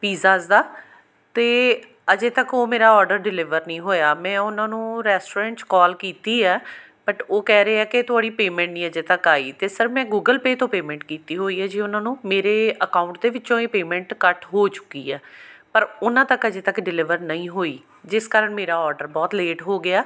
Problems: background sounds at intervals